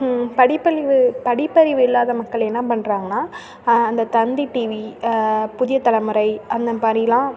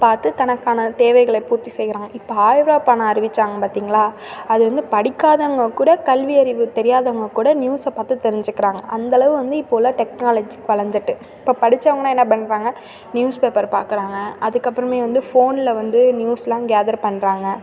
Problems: constant background noise